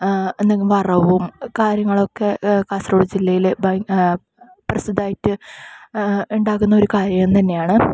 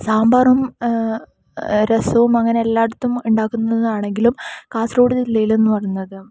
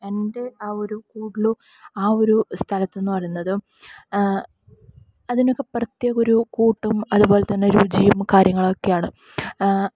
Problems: none marked